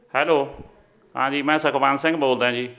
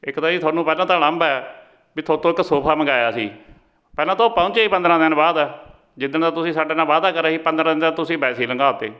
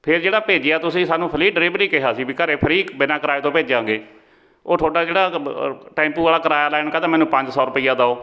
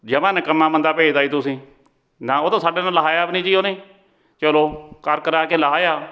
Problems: continuous background conversations